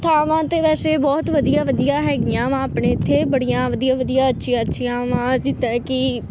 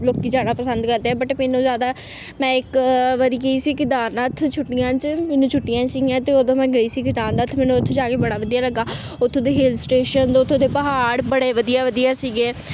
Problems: constant background noise